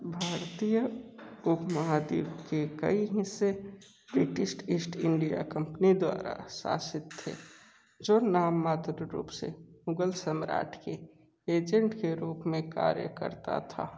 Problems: background sounds at intervals, low volume